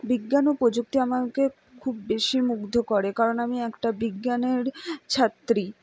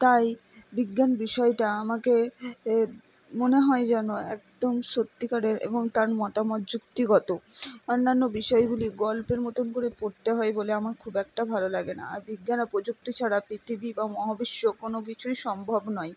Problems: none marked